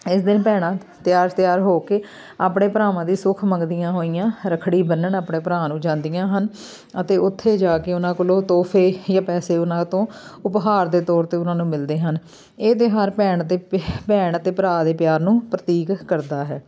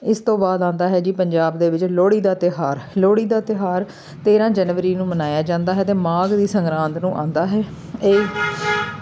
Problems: none marked